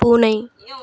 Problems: background conversations at intervals